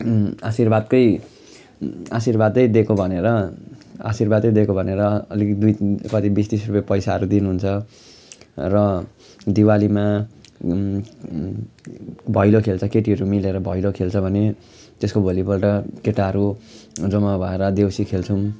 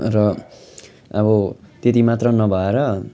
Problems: background sounds at intervals, continuous background conversations